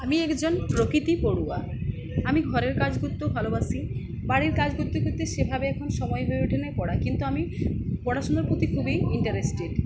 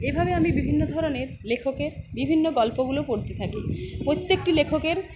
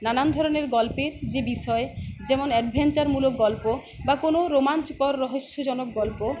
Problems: none marked